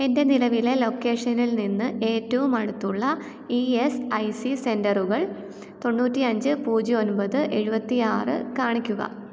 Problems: none marked